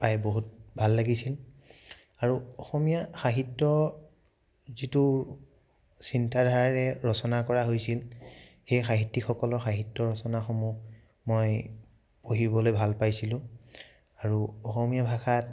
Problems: none marked